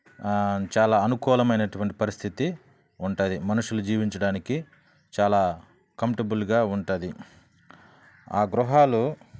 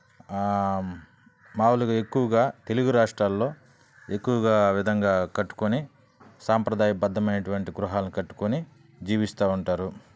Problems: none marked